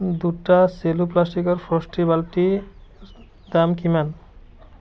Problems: none marked